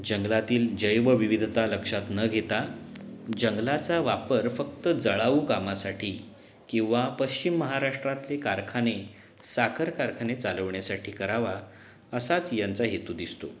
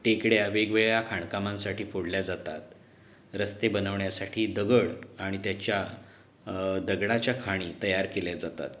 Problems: background sounds at intervals